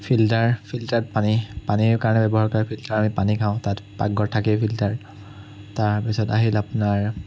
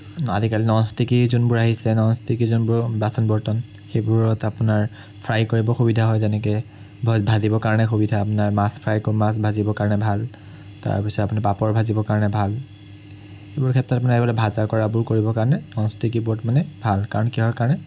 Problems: none marked